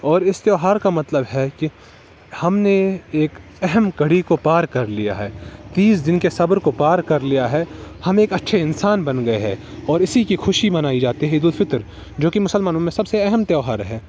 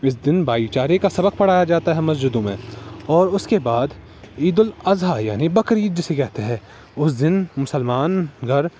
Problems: constant background noise